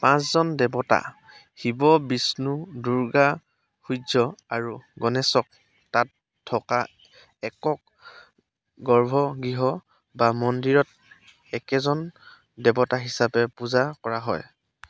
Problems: constant background noise